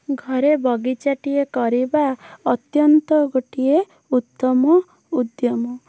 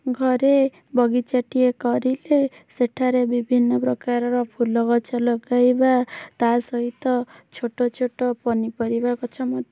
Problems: background sounds at intervals